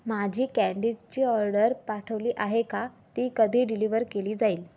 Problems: none marked